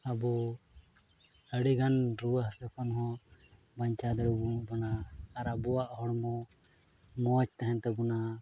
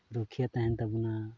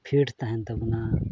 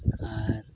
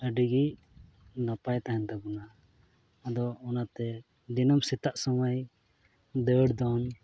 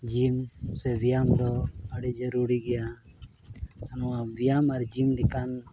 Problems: background sounds at intervals, low volume